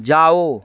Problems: constant background noise